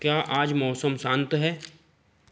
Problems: none marked